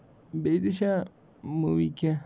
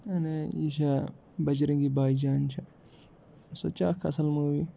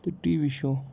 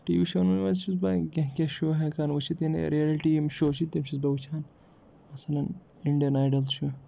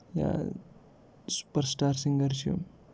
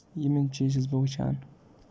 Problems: background sounds at intervals